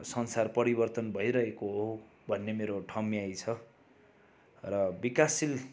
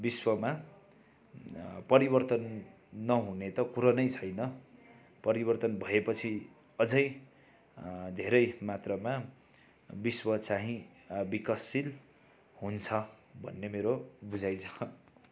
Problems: background sounds at intervals